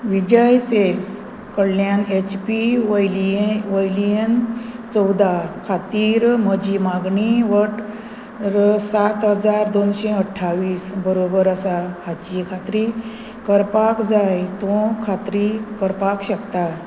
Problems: constant background noise